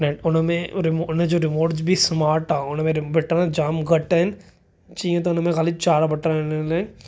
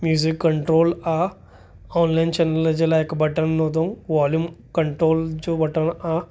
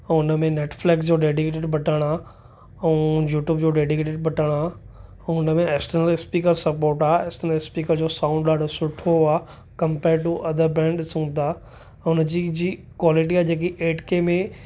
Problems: none marked